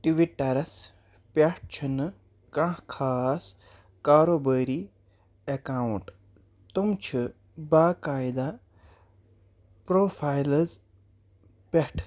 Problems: none marked